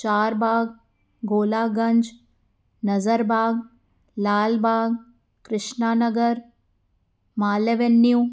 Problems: none marked